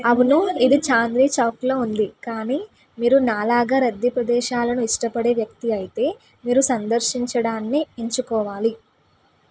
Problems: background conversations at intervals